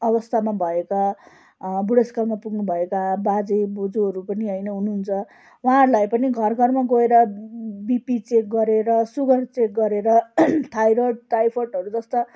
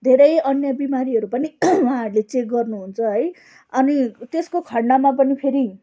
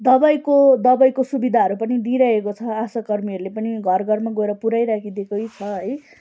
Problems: background sounds at intervals, background conversations at intervals